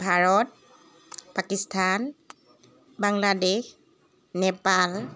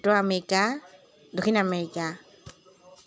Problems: continuous background conversations